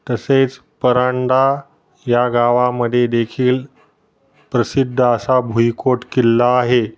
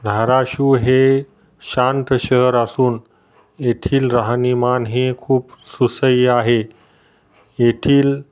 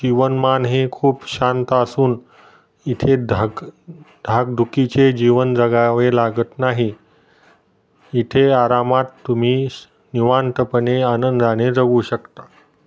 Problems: none marked